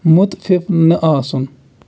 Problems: constant background noise